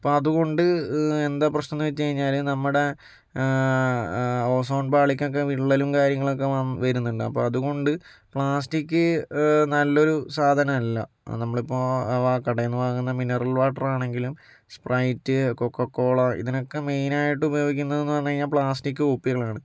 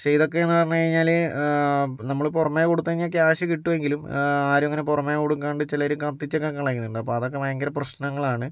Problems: none marked